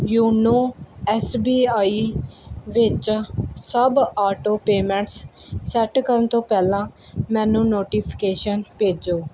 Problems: background sounds at intervals